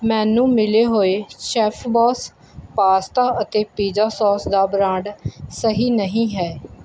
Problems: background sounds at intervals